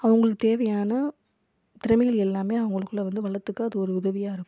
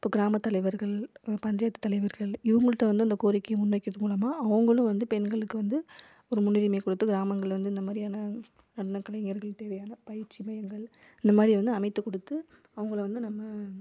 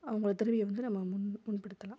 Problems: low volume